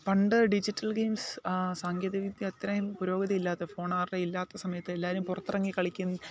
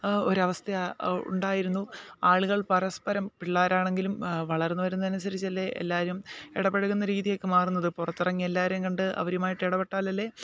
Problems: background sounds at intervals